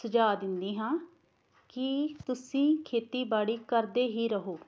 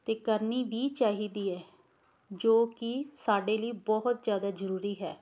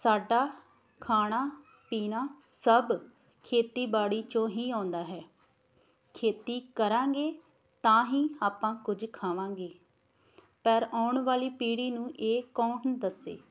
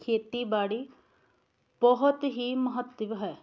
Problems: background sounds at intervals